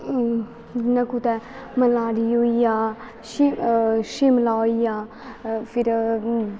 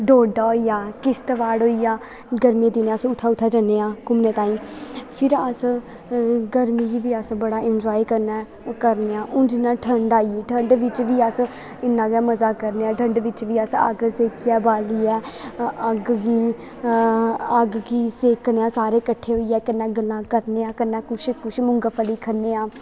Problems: constant background noise